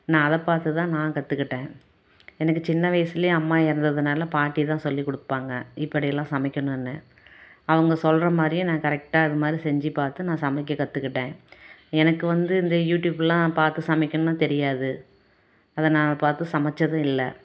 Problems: none marked